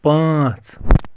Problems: constant background noise